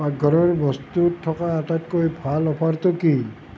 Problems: constant background noise